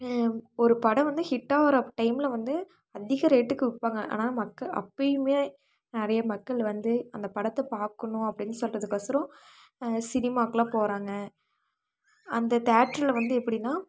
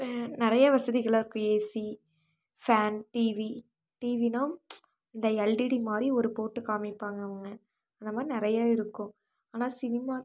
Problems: none marked